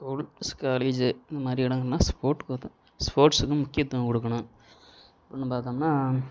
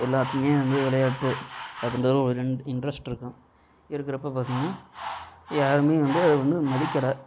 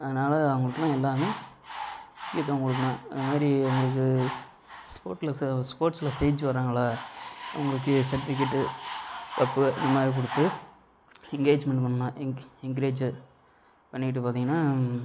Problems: constant background noise